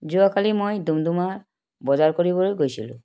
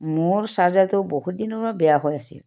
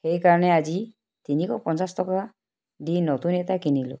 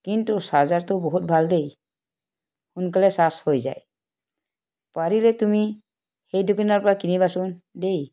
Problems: background sounds at intervals